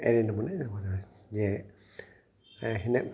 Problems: constant background noise, echo